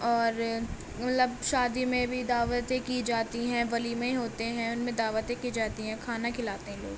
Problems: constant background noise